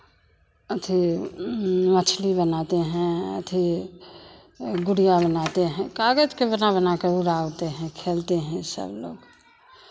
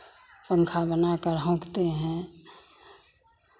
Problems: constant background noise, background conversations at intervals